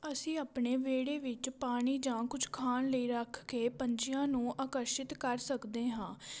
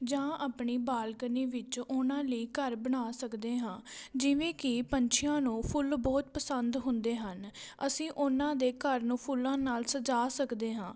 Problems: background sounds at intervals